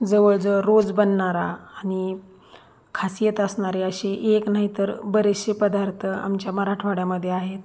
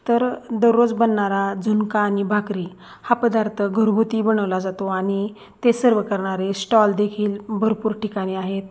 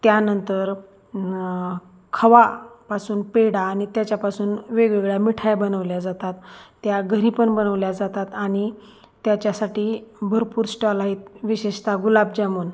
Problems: none marked